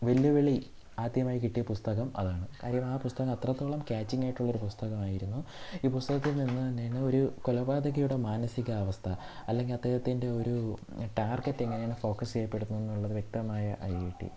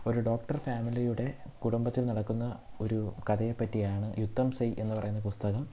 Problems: none marked